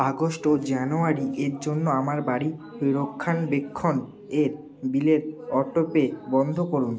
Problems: constant background noise, continuous background conversations